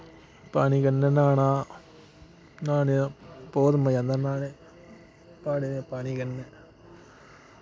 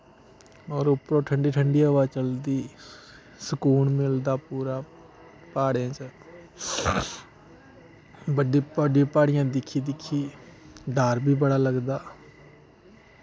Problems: constant background noise